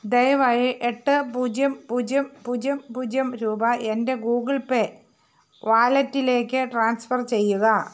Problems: background sounds at intervals